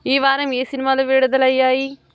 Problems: none marked